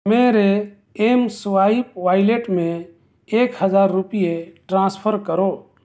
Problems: none marked